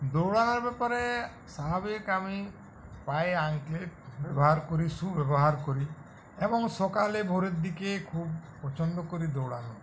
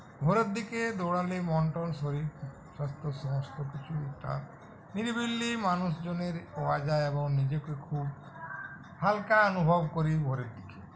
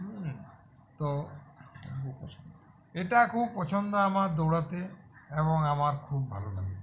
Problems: continuous background conversations